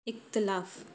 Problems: constant background noise, echo